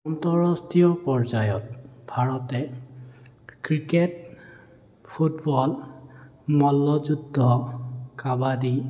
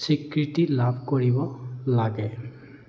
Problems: none marked